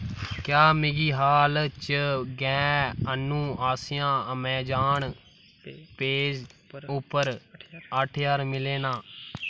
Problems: background sounds at intervals